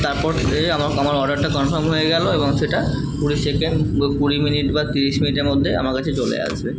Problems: constant background noise